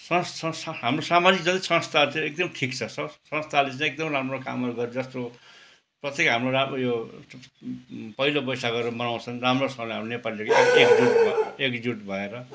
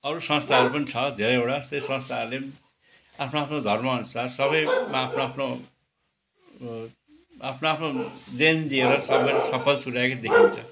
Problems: constant background noise